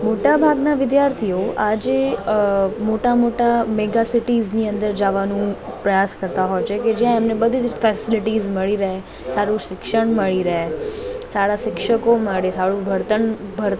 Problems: continuous background conversations